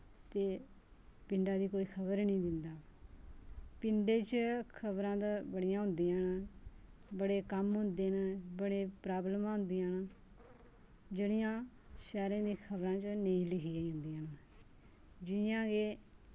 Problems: low volume